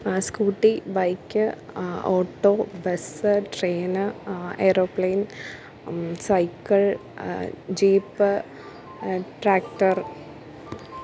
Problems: none marked